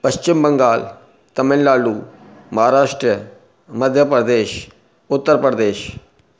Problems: none marked